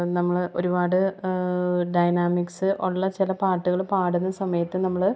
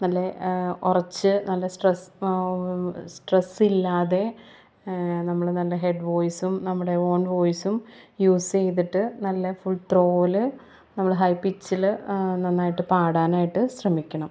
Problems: none marked